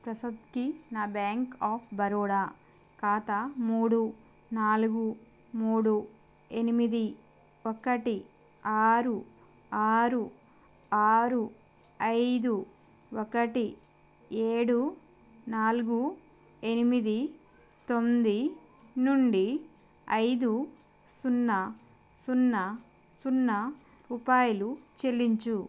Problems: constant background noise